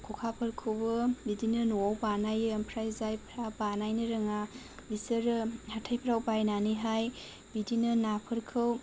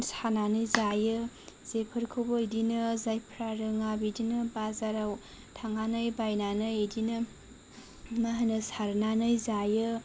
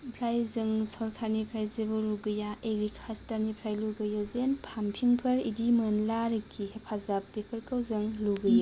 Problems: low volume